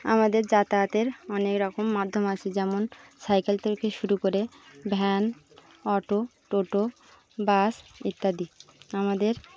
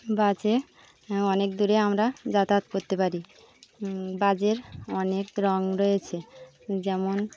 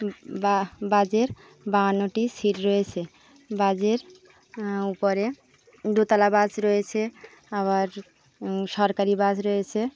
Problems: constant background noise, background conversations at intervals